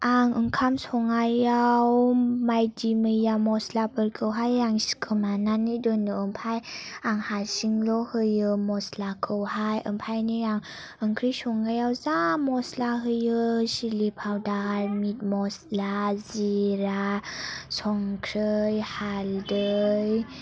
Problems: none marked